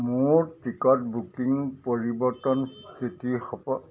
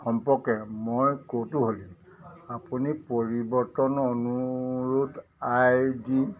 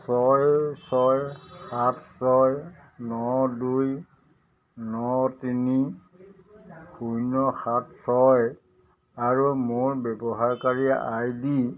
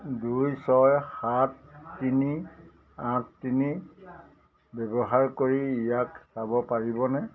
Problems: none marked